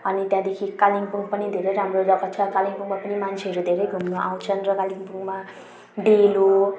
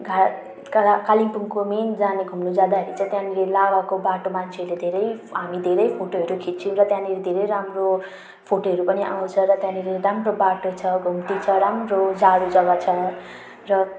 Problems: none marked